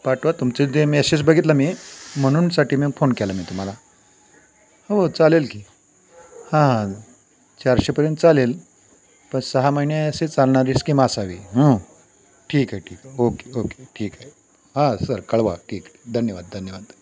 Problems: constant background noise, background conversations at intervals